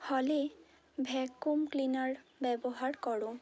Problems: none marked